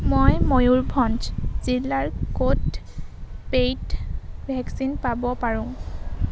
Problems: constant background noise